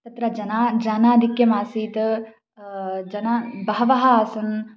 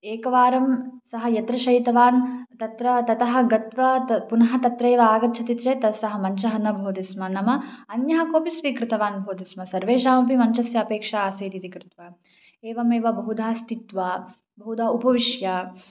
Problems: none marked